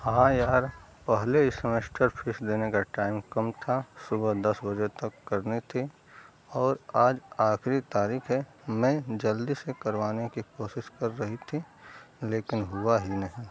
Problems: none marked